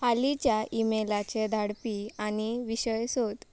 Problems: background sounds at intervals